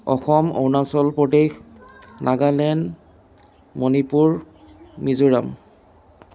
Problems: none marked